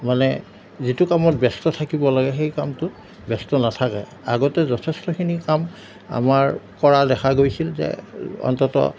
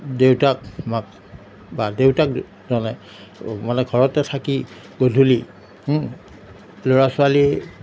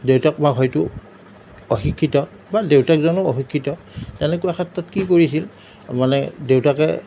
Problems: none marked